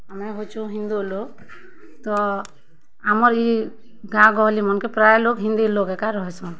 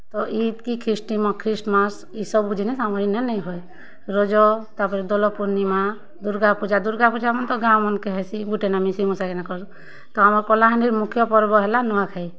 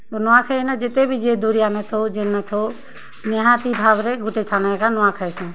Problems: constant background noise, continuous background conversations